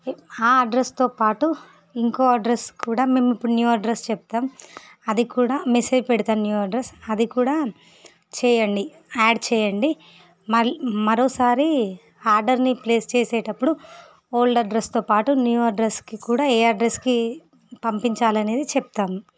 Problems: none marked